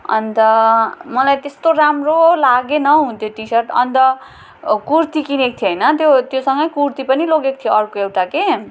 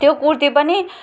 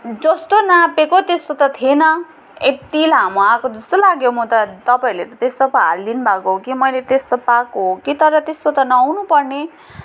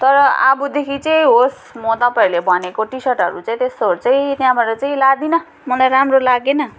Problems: none marked